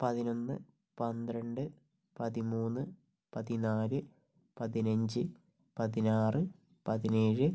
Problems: low volume